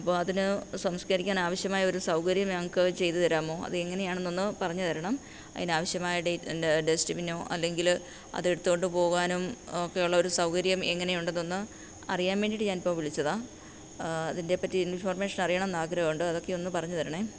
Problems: low volume